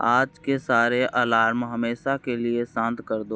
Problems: none marked